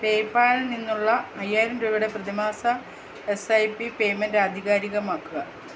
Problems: constant background noise